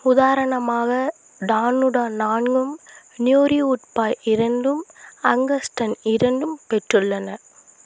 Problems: constant background noise